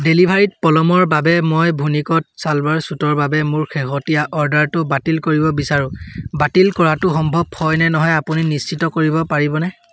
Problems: none marked